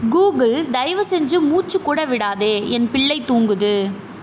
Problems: none marked